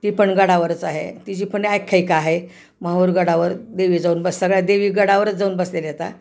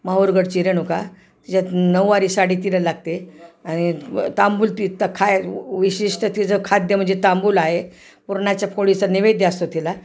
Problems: constant background noise, background conversations at intervals